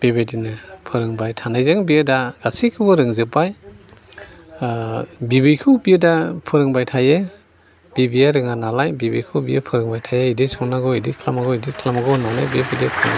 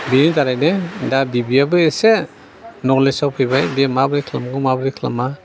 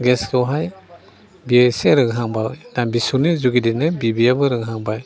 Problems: constant background noise